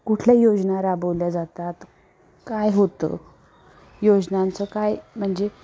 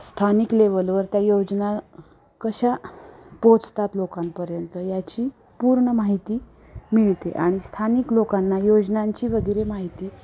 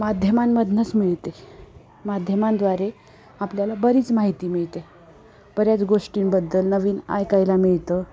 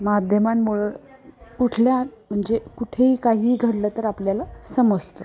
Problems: constant background noise, continuous background conversations